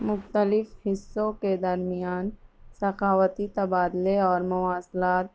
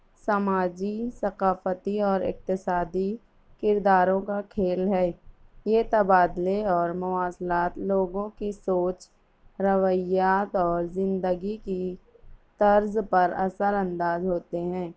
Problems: background sounds at intervals